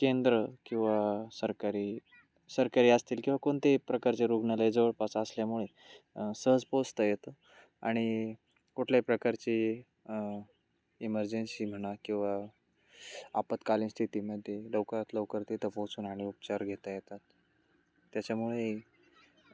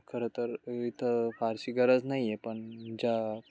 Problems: constant background noise, continuous background conversations, low volume